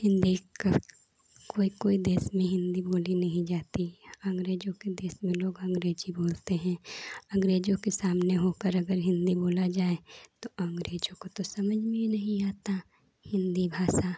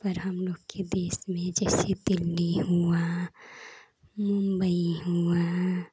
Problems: none marked